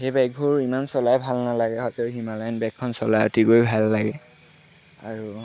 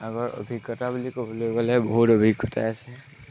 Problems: constant background noise